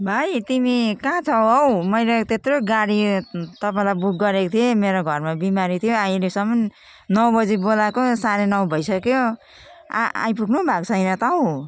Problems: continuous background conversations